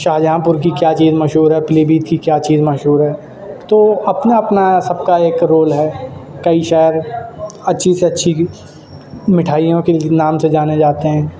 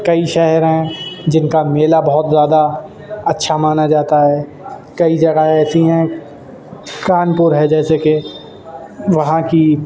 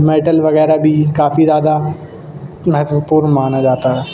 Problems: constant background noise